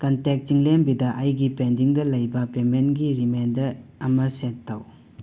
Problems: constant background noise